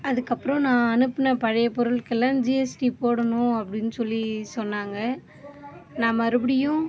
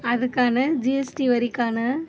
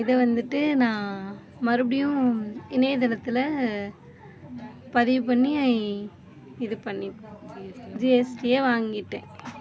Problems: background sounds at intervals, low volume